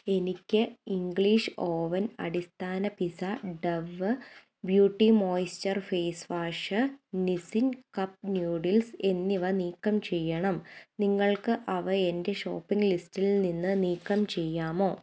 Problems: none marked